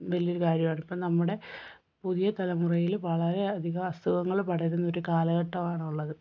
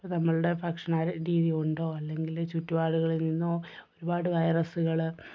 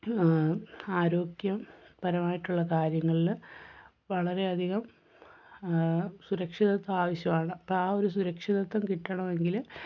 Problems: none marked